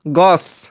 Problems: constant background noise